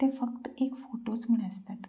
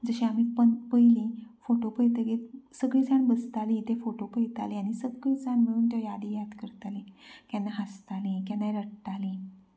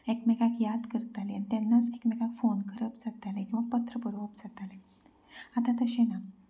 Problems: background sounds at intervals, low volume